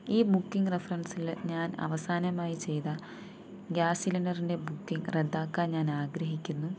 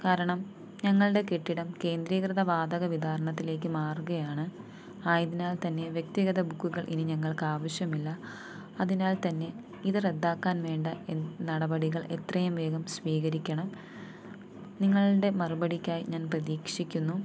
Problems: low volume